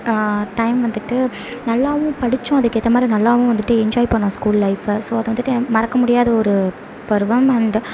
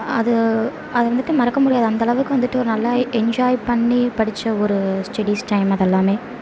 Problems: none marked